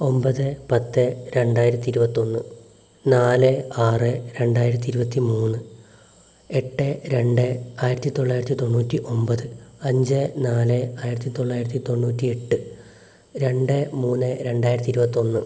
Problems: low volume